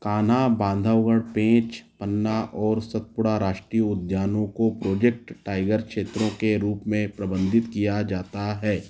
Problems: background sounds at intervals